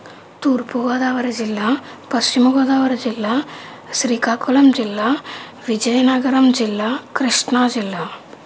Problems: constant background noise